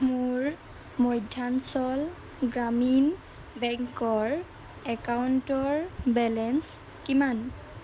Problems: background sounds at intervals